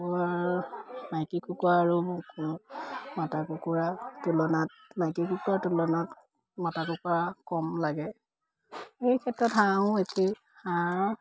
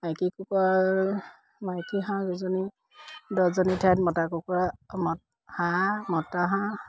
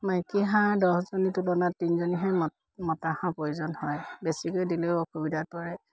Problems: none marked